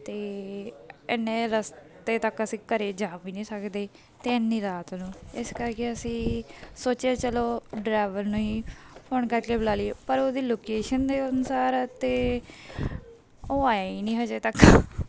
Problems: background sounds at intervals